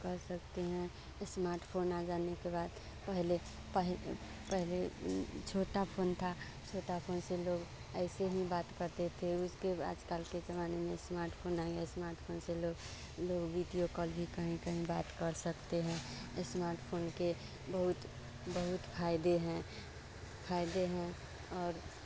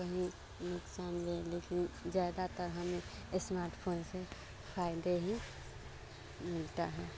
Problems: constant background noise